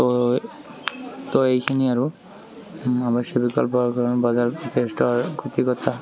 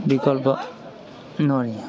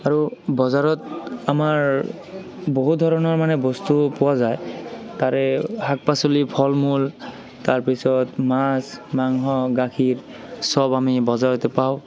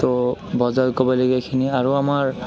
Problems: background sounds at intervals, continuous background conversations